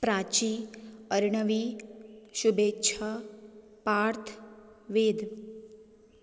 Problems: none marked